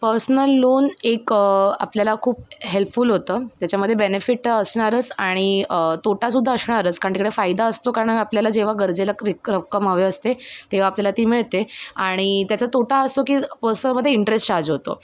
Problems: background sounds at intervals